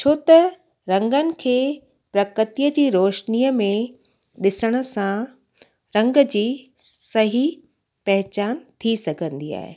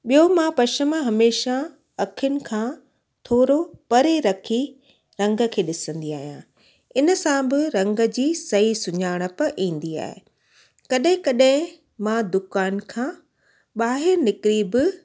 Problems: constant background noise